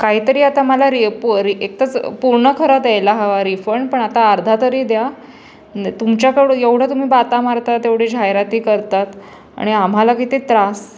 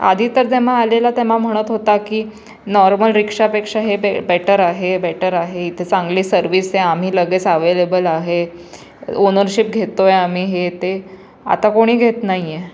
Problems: none marked